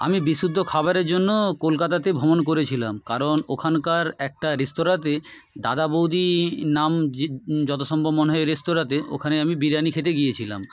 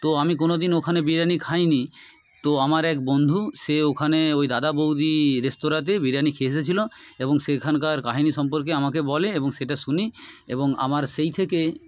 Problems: background sounds at intervals, background conversations at intervals